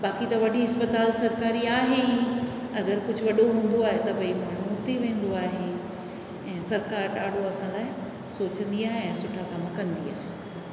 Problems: constant background noise, echo